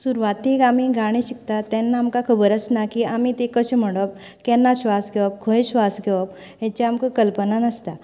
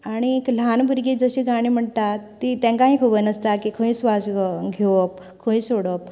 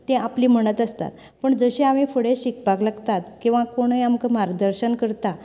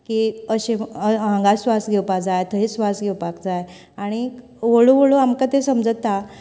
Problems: background conversations at intervals